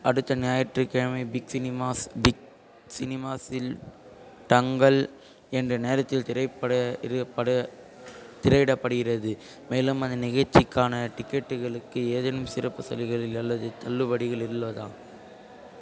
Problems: constant background noise, continuous background conversations